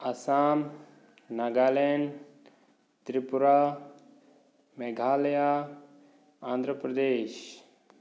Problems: none marked